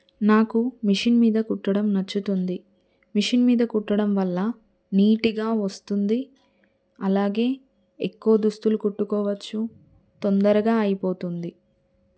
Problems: none marked